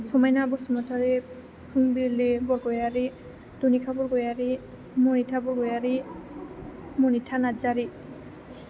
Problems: constant background noise